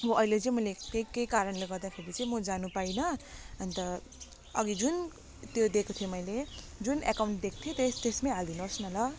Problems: constant background noise